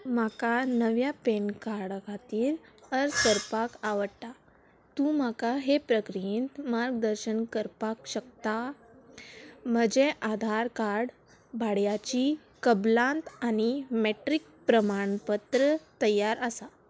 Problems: background sounds at intervals